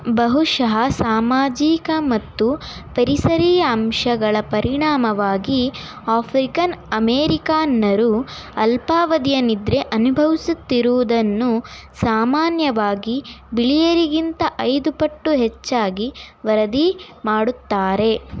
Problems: background conversations at intervals